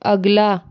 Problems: none marked